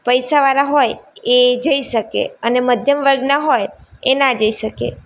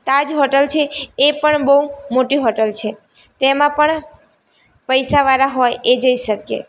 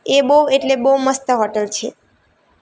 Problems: none marked